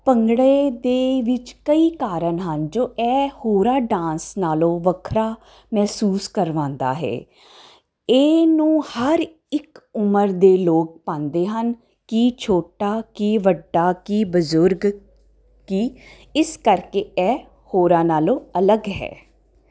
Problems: constant background noise